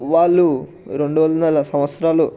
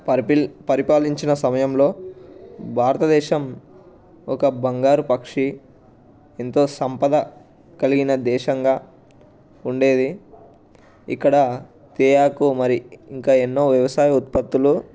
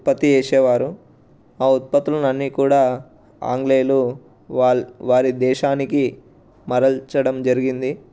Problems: background sounds at intervals, background conversations at intervals